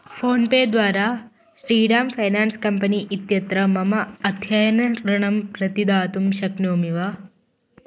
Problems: constant background noise